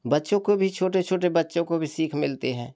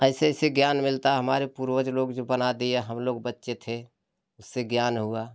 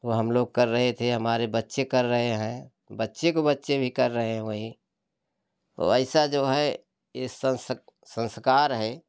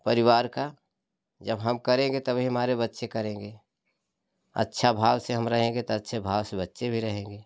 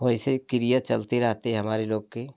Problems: constant background noise